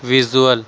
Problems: constant background noise